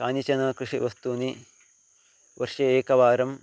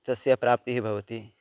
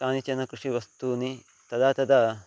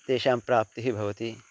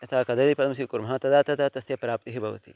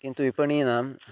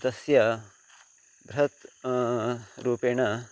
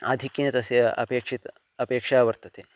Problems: constant background noise